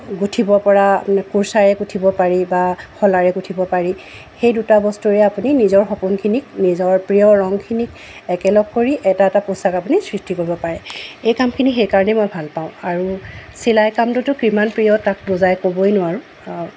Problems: constant background noise